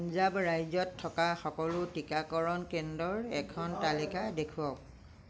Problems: none marked